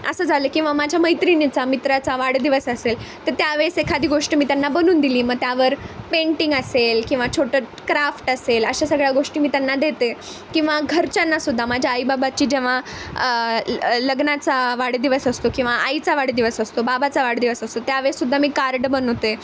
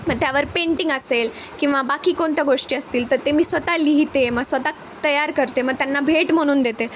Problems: constant background noise